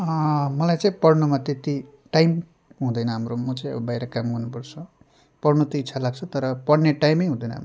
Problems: none marked